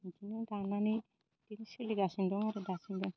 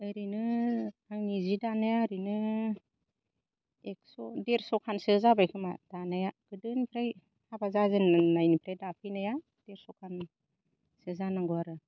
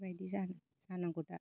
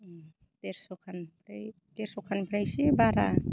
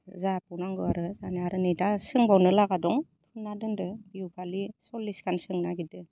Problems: low volume